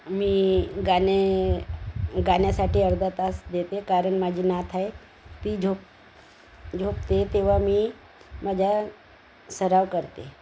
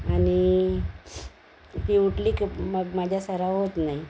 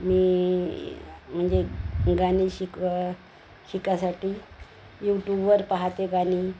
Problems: constant background noise